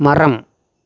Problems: none marked